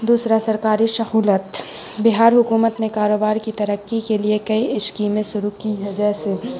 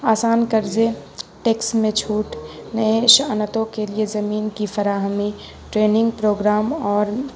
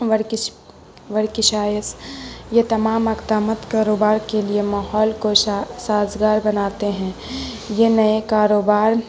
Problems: constant background noise